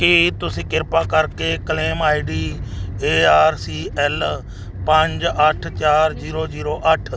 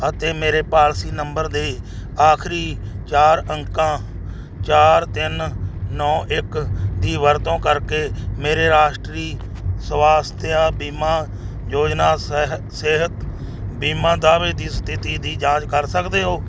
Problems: none marked